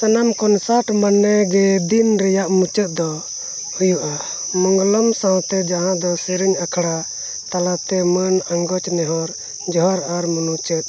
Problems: constant background noise